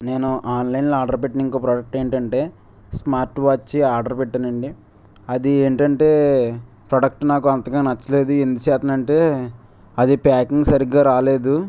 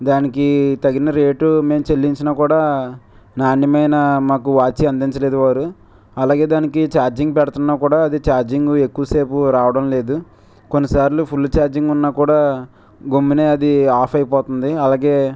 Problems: background sounds at intervals